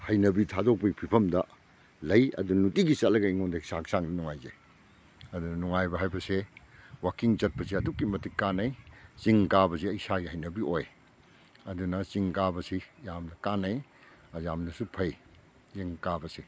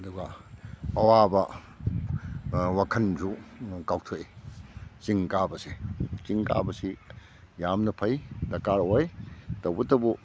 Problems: none marked